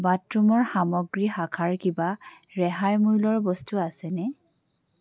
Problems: none marked